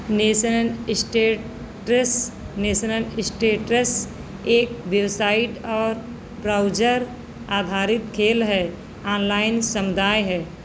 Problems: constant background noise